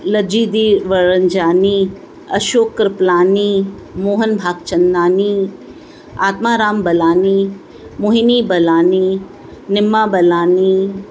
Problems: constant background noise, echo